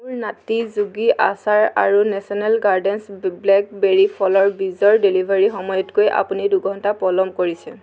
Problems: background sounds at intervals